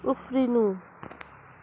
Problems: constant background noise